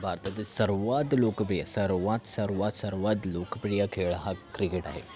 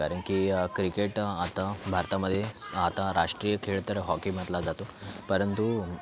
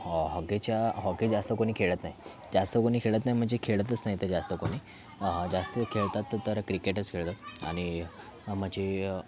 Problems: background sounds at intervals